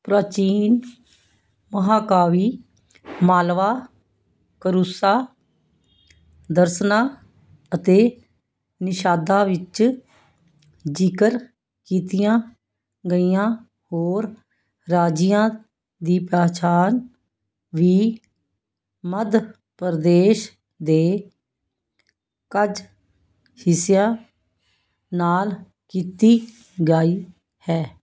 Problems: none marked